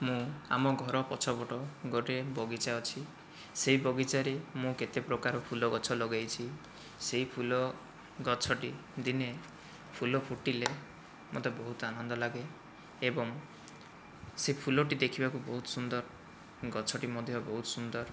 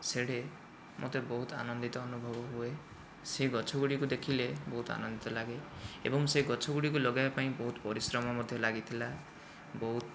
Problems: low volume